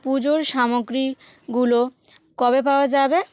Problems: none marked